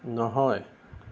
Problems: none marked